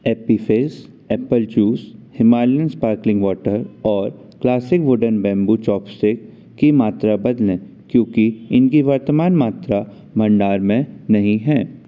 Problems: constant background noise